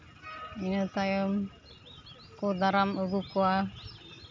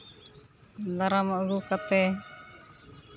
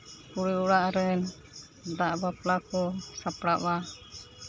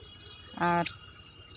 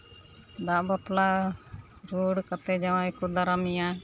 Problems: none marked